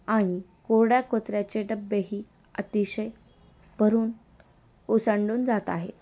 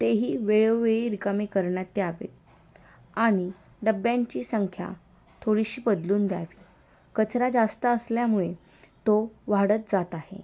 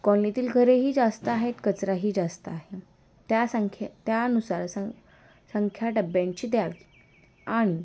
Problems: constant background noise